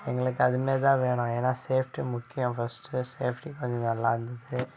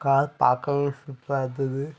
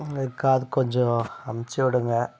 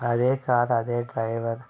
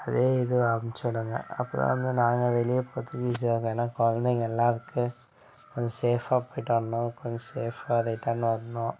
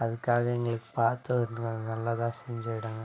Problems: background conversations at intervals